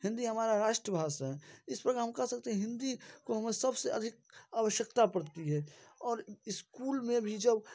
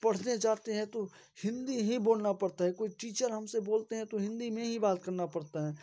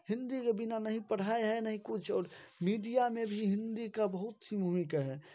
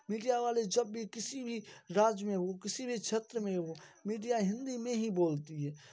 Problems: background sounds at intervals